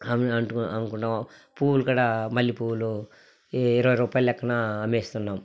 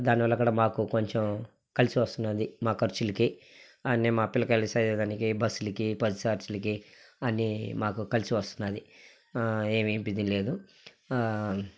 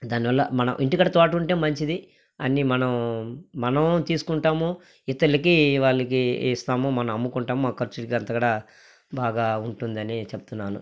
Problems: background sounds at intervals, background conversations at intervals